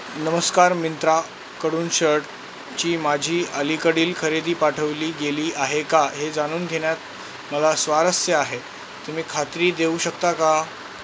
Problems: constant background noise